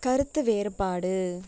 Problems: background sounds at intervals